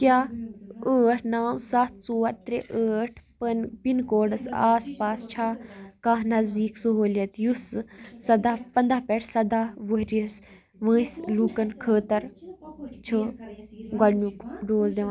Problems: continuous background conversations